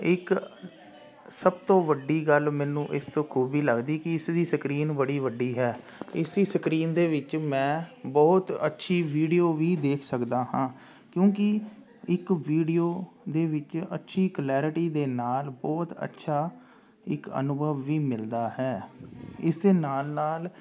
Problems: constant background noise